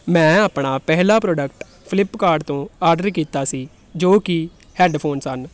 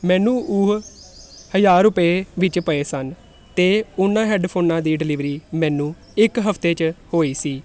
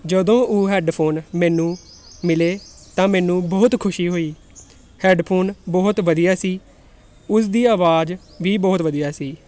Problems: constant background noise